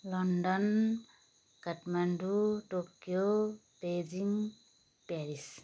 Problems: constant background noise